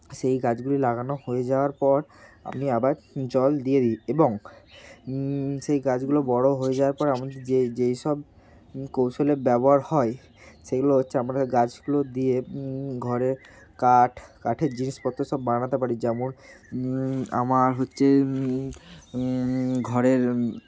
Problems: constant background noise